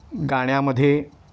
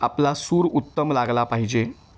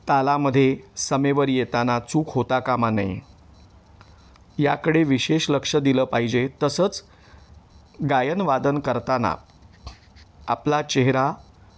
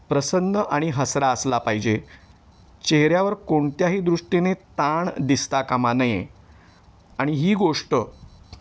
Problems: none marked